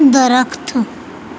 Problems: none marked